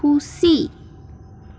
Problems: constant background noise